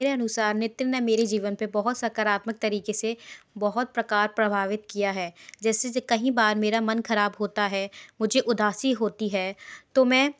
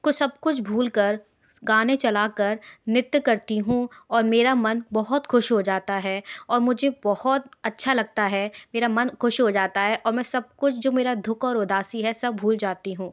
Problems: background sounds at intervals